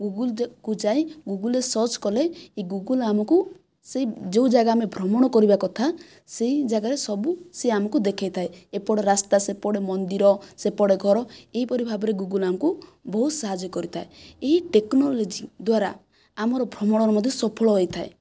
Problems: none marked